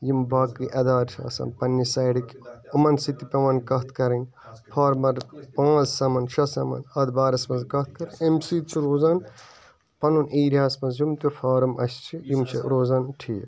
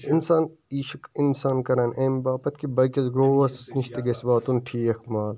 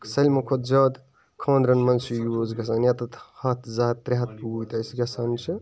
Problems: constant background noise, continuous background conversations